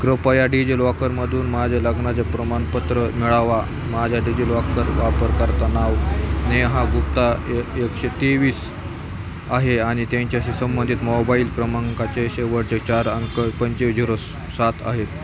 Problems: constant background noise, continuous background conversations